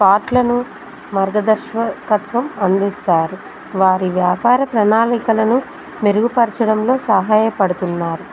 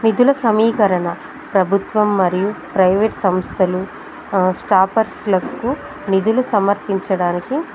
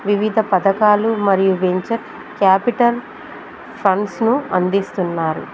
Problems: constant background noise